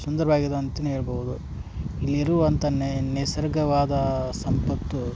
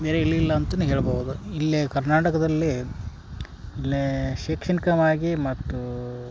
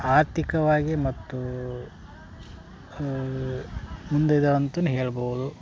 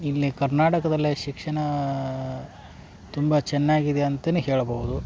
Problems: background sounds at intervals